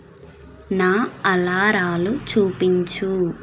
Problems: constant background noise